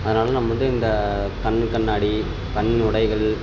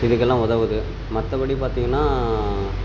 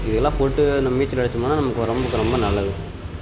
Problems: constant background noise